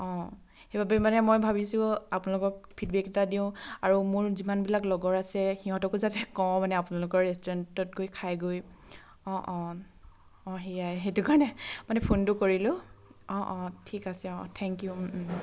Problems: constant background noise